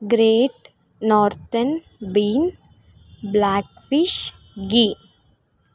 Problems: none marked